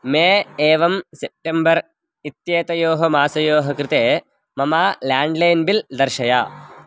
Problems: background sounds at intervals